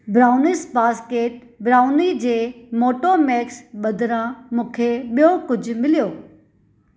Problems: background sounds at intervals